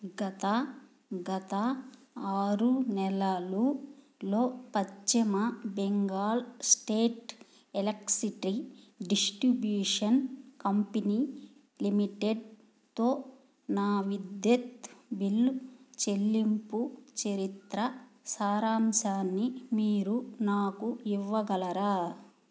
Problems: low volume